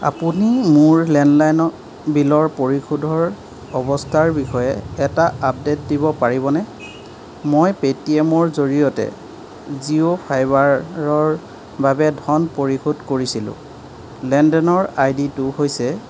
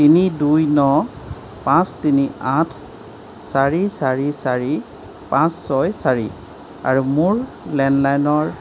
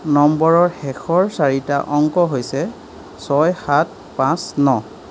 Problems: none marked